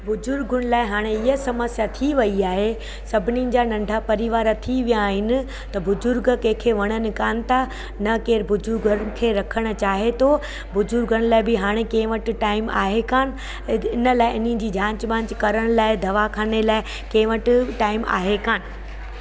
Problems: constant background noise